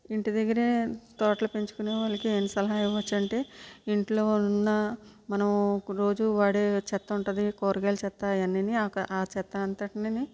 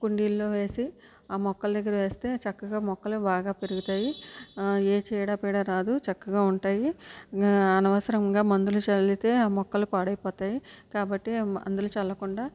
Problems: low volume